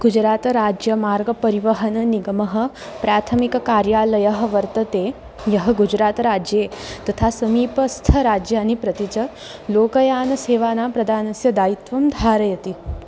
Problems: none marked